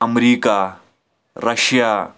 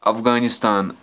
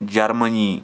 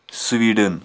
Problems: background sounds at intervals